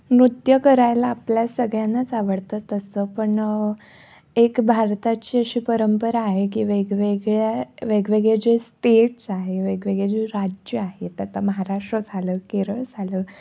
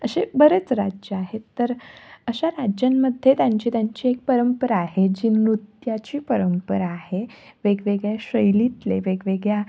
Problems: background sounds at intervals